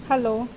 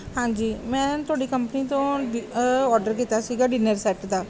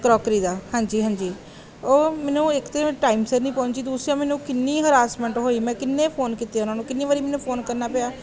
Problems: background sounds at intervals